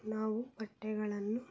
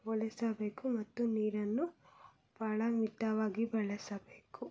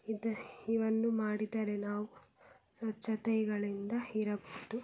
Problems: none marked